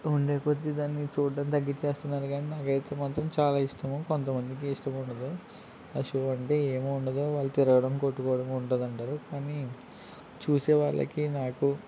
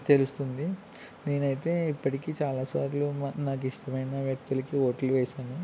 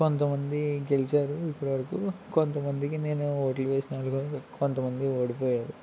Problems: none marked